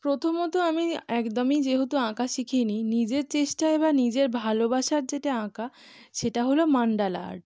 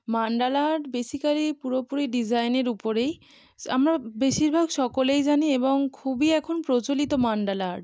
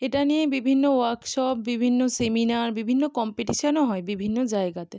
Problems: none marked